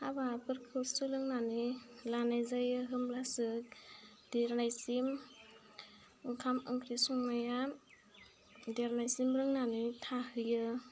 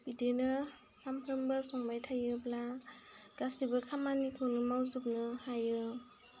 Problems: constant background noise